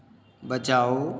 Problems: none marked